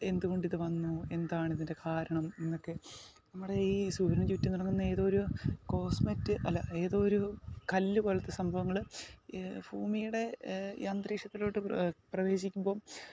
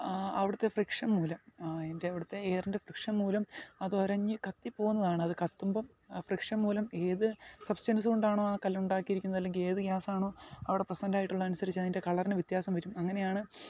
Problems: background conversations at intervals, low volume